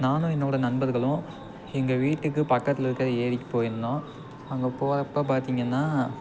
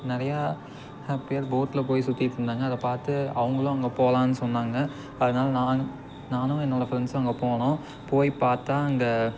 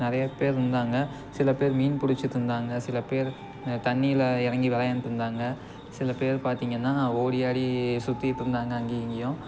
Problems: constant background noise